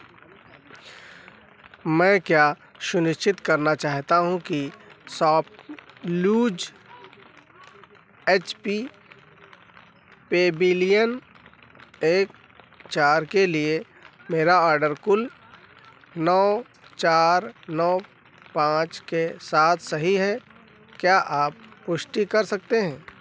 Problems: constant background noise